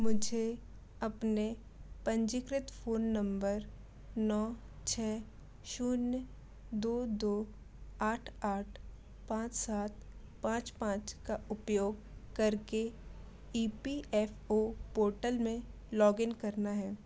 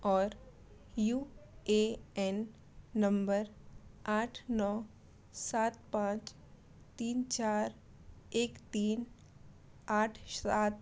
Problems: none marked